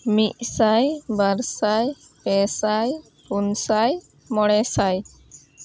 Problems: constant background noise